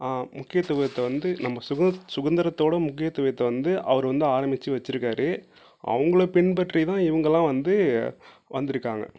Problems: low volume